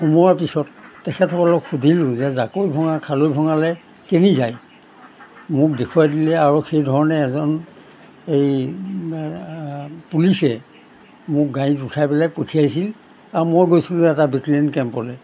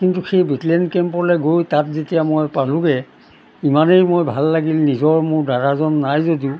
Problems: background sounds at intervals